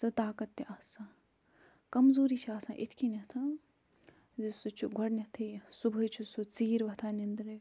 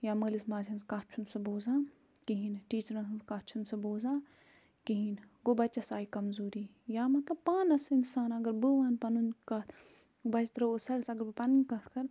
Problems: none marked